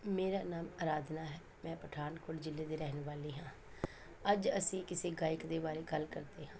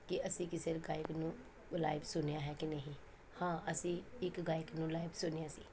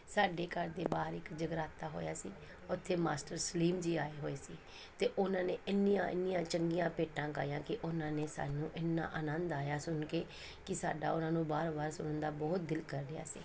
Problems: none marked